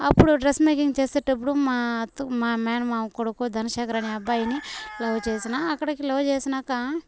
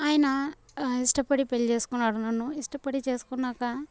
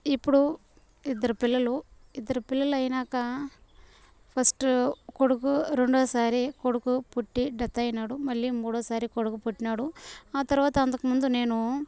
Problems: none marked